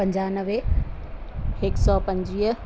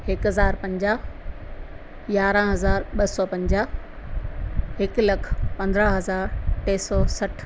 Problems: constant background noise, echo